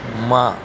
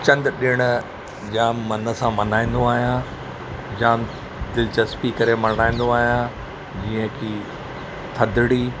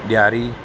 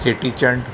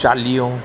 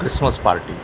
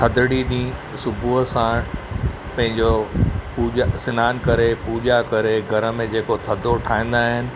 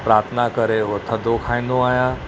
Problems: none marked